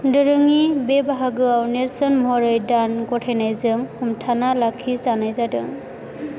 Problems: constant background noise